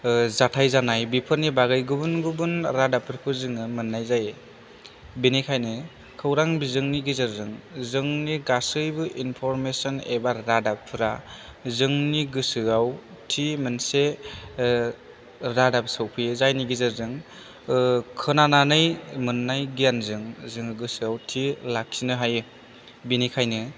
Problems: low volume